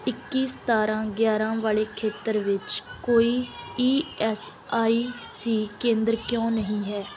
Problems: background sounds at intervals